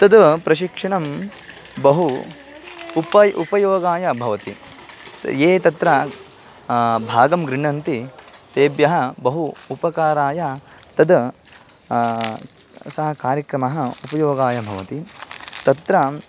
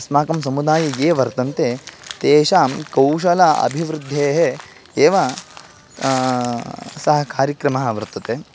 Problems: background sounds at intervals